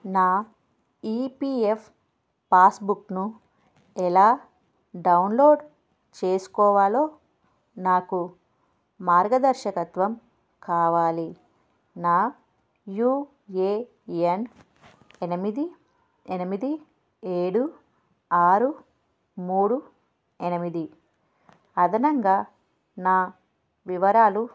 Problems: background sounds at intervals